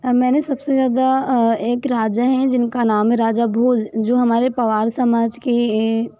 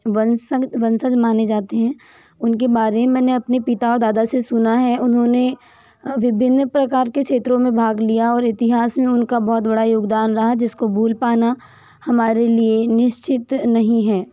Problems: background sounds at intervals